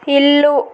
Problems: constant background noise